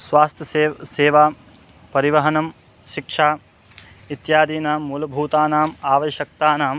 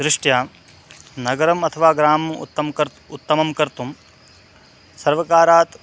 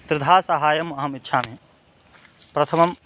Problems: none marked